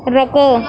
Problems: constant background noise